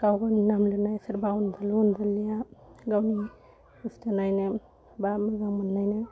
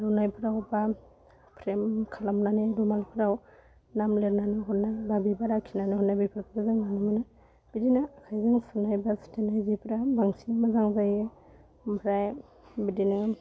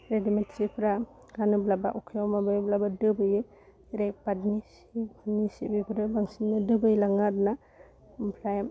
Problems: constant background noise